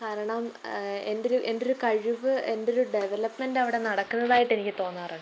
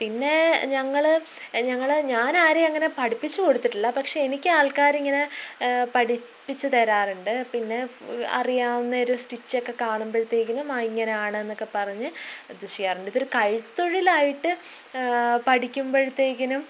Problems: none marked